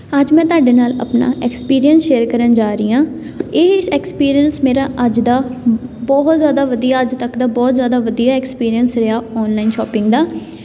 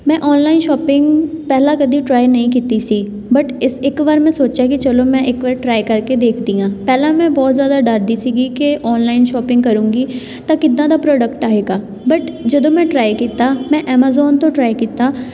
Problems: background sounds at intervals